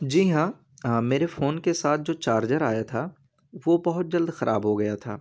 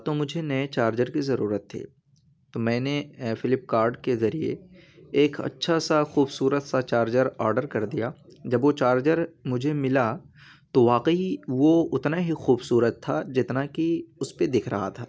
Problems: constant background noise